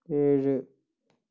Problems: low volume